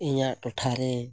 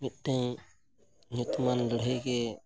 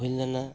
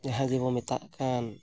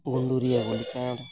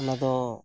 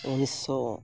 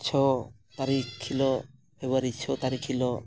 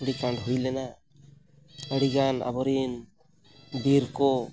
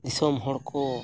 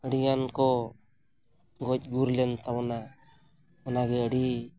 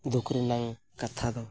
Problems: background sounds at intervals